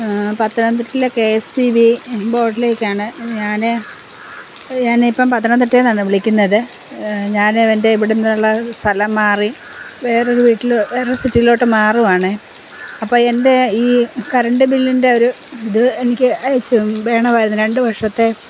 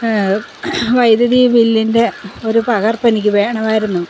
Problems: constant background noise